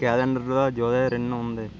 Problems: constant background noise